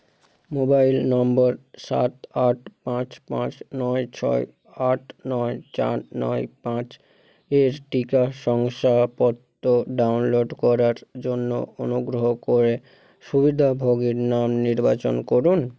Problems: none marked